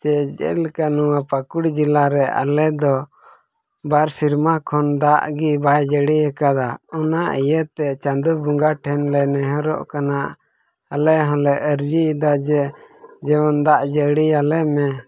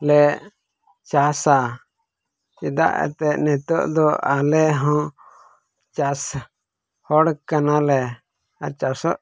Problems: background sounds at intervals, low volume